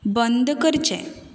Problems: background sounds at intervals